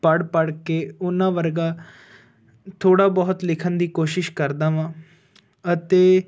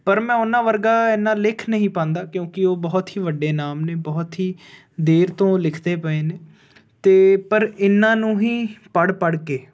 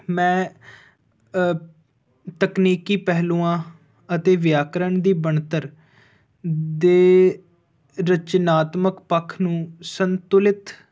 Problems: background sounds at intervals